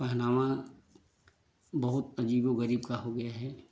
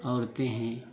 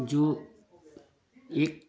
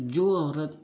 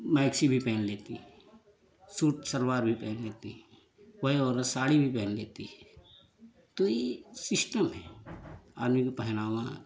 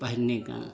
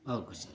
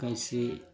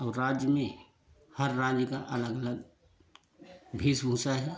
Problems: constant background noise